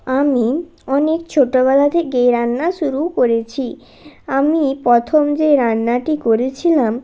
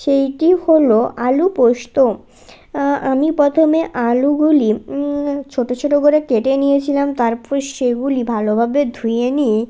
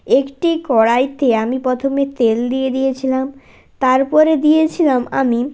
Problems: none marked